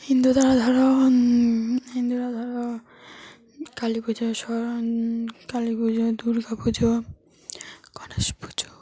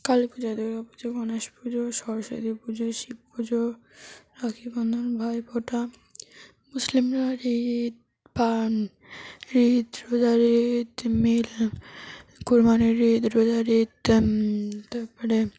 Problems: none marked